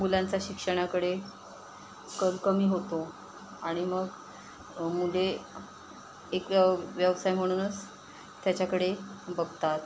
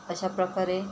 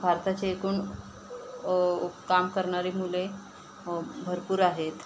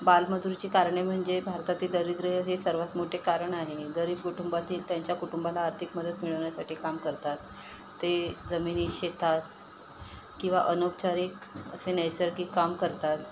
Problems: constant background noise